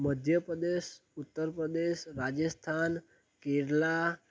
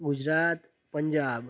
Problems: none marked